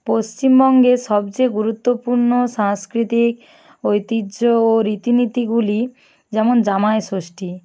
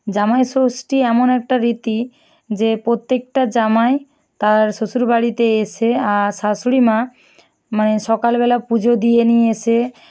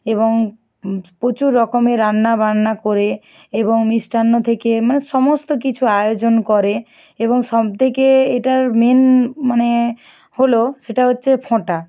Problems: none marked